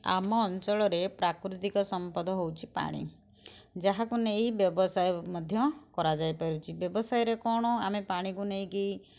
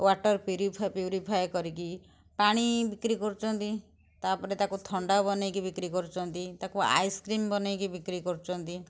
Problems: background sounds at intervals